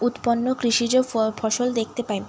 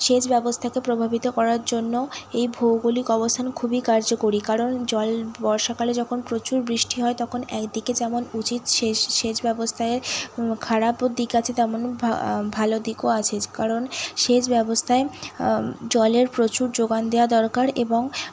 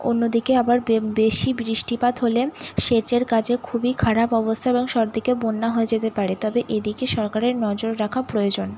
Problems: none marked